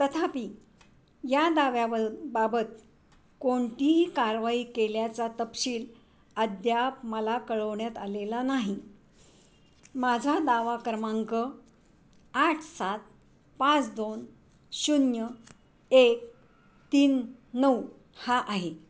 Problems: none marked